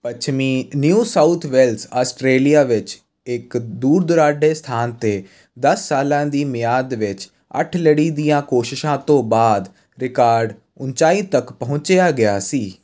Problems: constant background noise